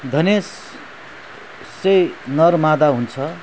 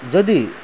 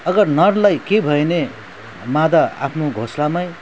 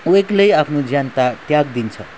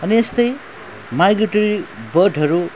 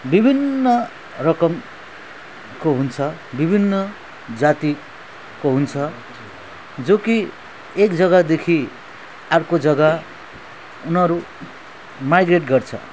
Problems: background sounds at intervals